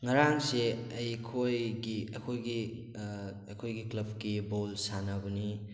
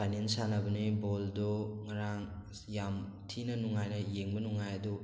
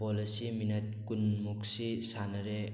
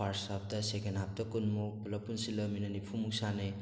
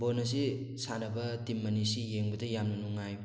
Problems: none marked